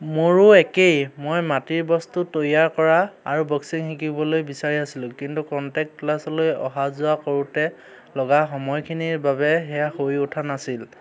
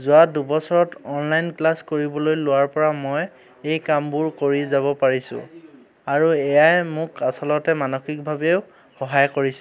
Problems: none marked